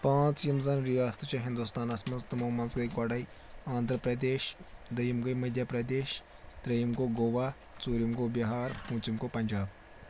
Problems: none marked